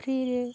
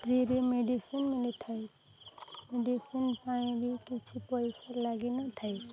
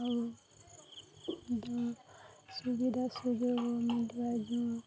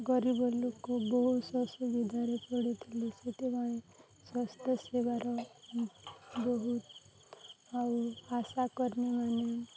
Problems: constant background noise, continuous background conversations